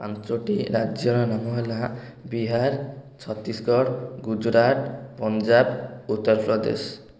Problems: none marked